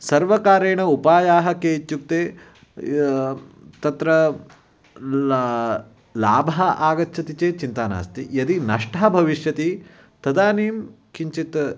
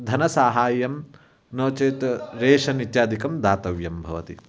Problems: none marked